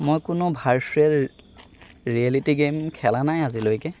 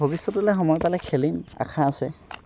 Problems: background sounds at intervals